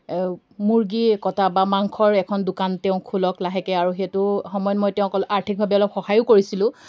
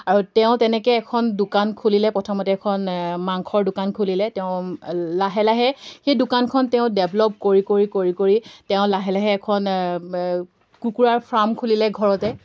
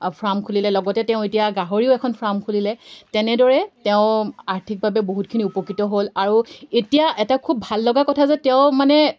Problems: none marked